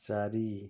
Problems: low volume